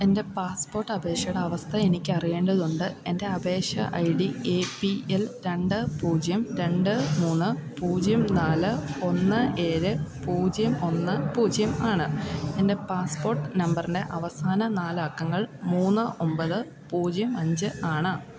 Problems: continuous background conversations